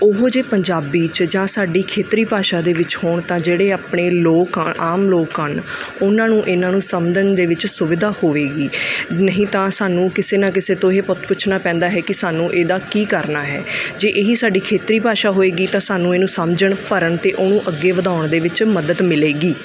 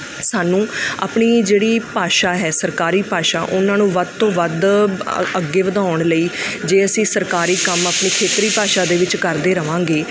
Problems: background sounds at intervals